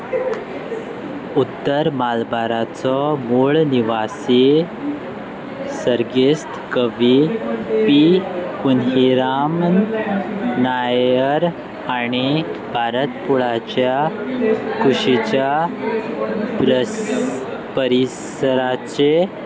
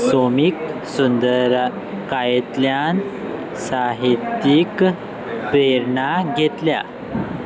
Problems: constant background noise, continuous background conversations